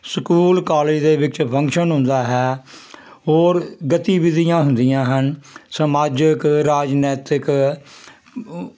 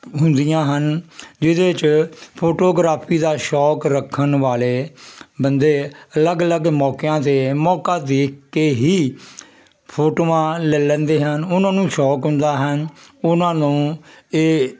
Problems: none marked